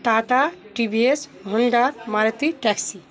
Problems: constant background noise